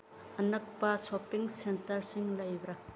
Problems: background sounds at intervals